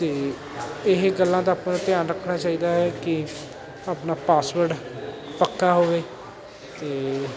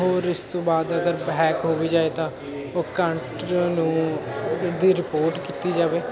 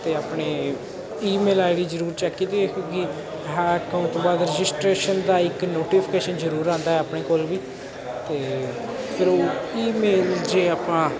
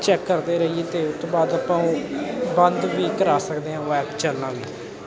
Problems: constant background noise, continuous background conversations